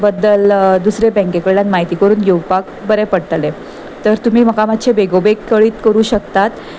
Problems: constant background noise